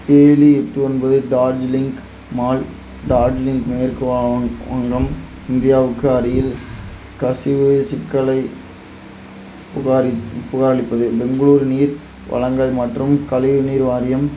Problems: constant background noise